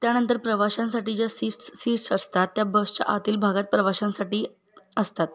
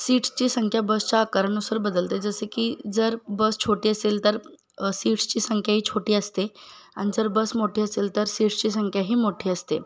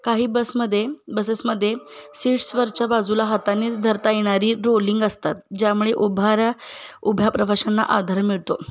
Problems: none marked